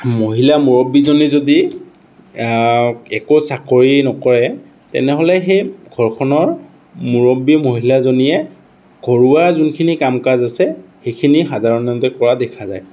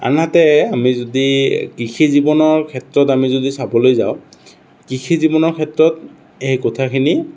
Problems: none marked